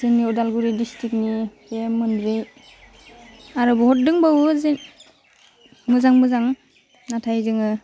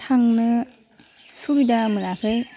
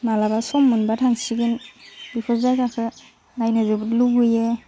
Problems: constant background noise